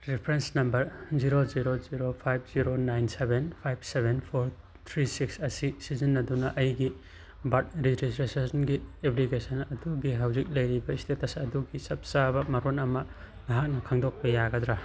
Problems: background sounds at intervals